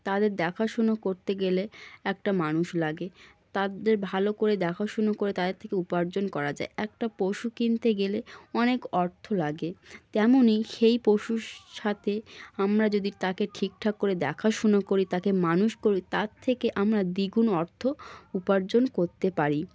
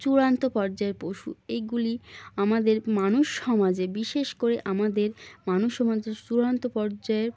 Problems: none marked